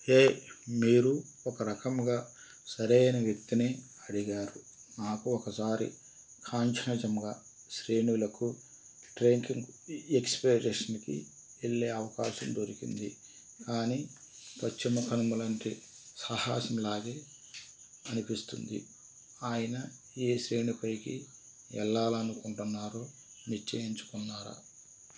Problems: constant background noise